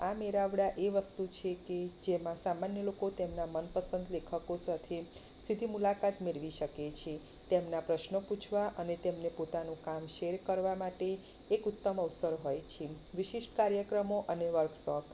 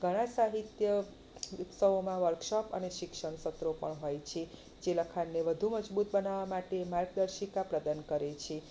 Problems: none marked